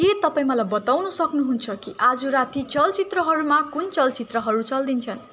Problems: constant background noise